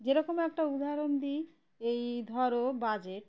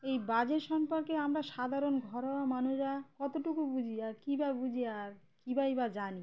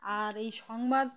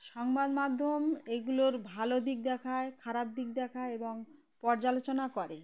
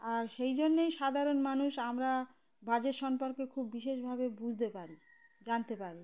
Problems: background sounds at intervals